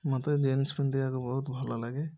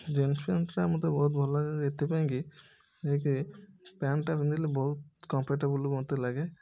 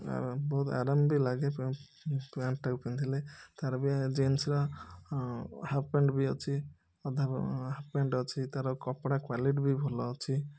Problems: none marked